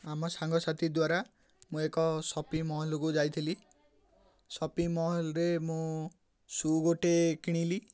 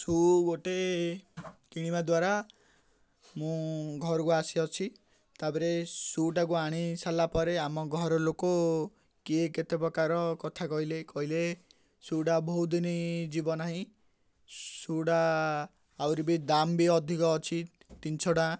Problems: none marked